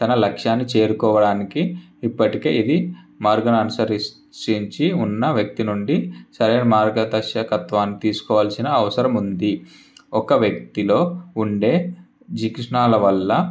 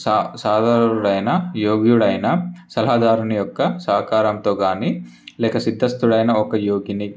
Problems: none marked